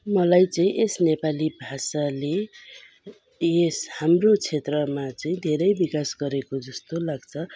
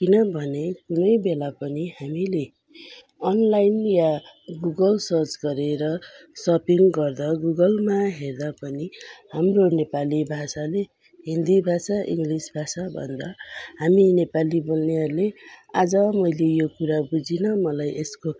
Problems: constant background noise